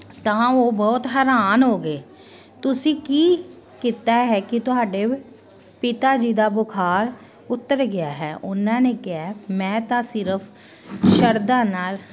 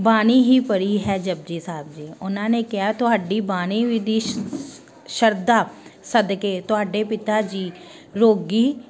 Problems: constant background noise